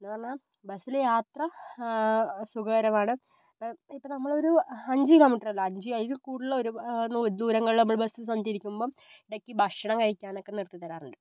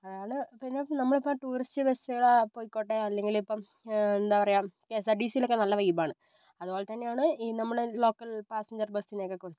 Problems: low volume